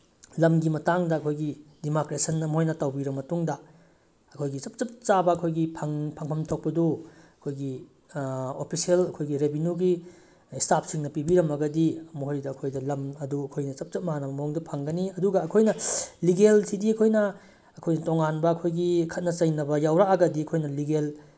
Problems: none marked